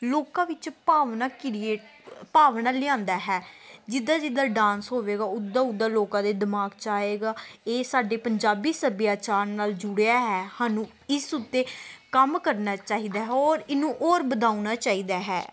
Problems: background sounds at intervals